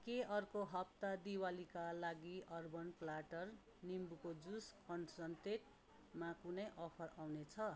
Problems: none marked